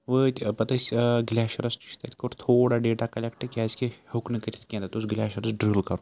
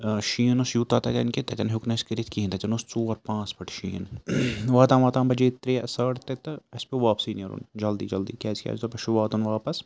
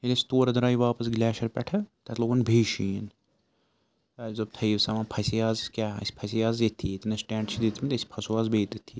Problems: constant background noise